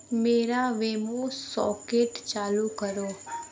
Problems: constant background noise, background conversations at intervals